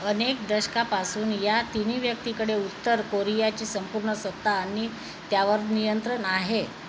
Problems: constant background noise, echo